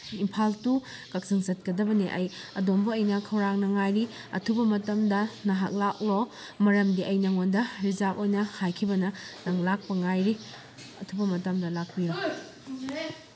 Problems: constant background noise